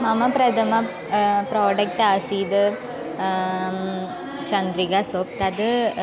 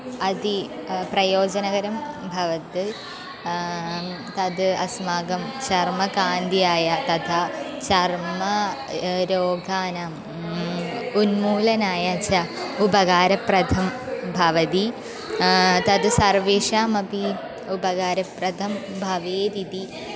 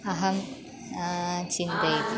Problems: constant background noise